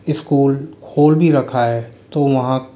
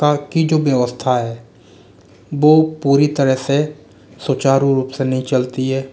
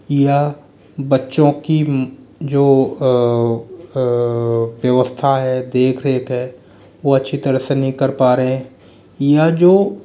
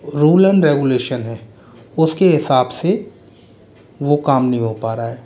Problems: none marked